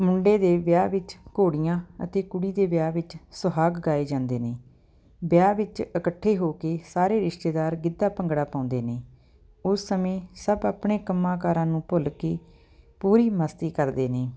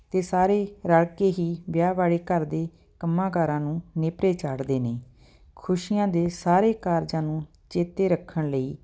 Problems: background sounds at intervals